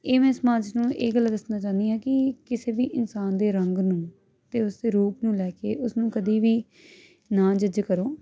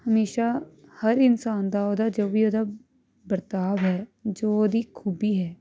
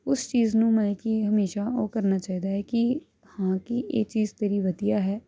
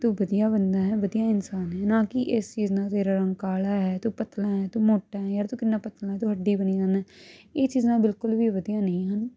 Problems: none marked